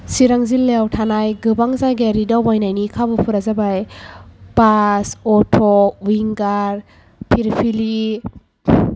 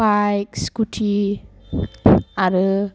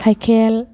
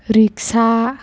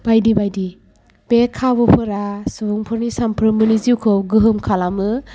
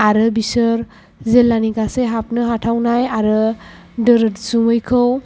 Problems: background sounds at intervals